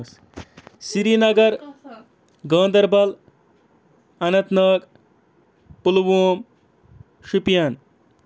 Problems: background sounds at intervals